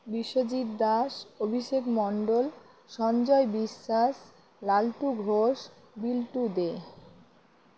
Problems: none marked